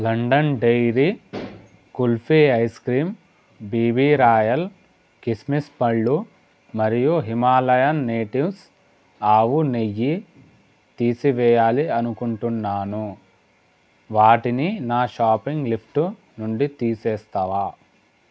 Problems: constant background noise